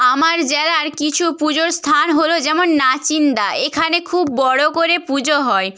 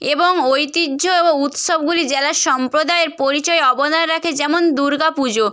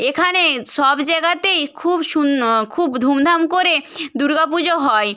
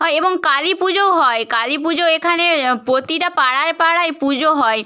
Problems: none marked